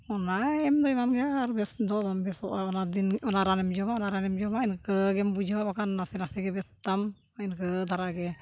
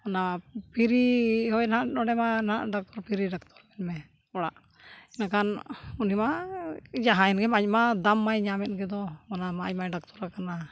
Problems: none marked